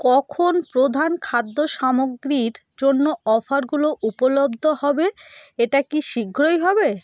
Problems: background sounds at intervals